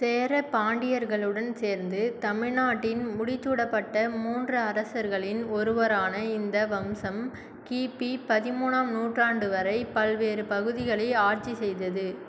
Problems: none marked